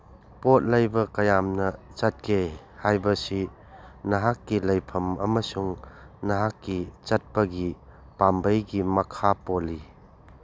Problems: background sounds at intervals